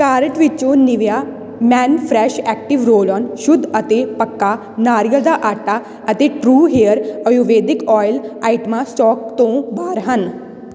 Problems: none marked